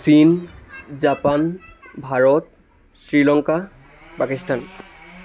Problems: background sounds at intervals, background conversations at intervals